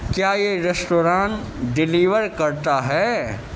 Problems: constant background noise